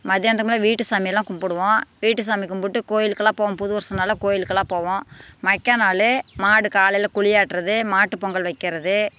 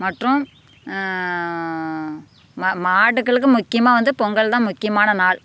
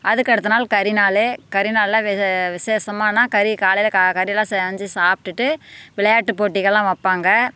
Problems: constant background noise